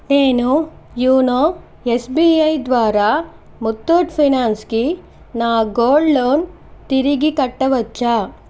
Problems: none marked